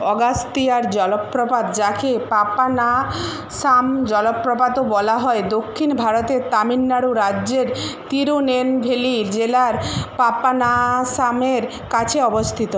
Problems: constant background noise